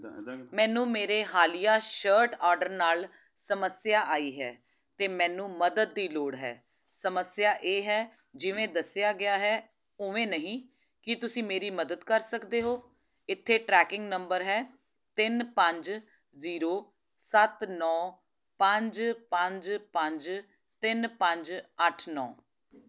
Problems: background conversations at intervals